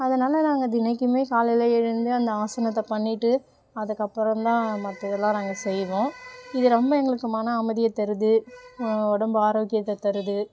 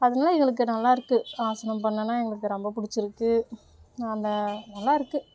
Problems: background sounds at intervals